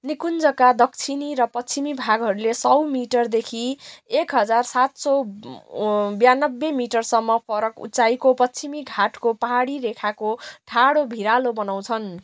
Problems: constant background noise